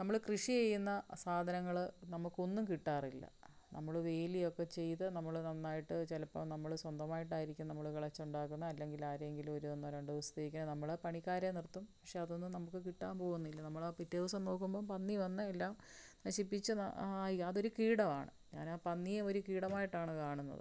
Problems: low volume